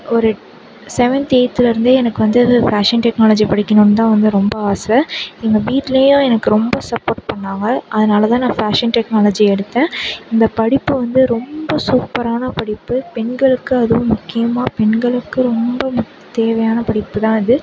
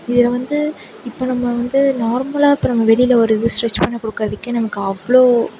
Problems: constant background noise